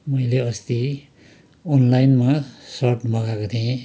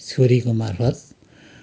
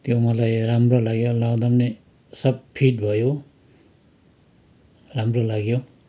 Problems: continuous background conversations